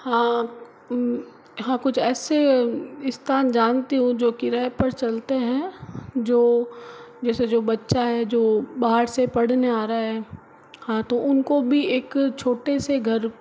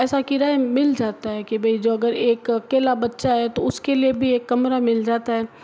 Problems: background sounds at intervals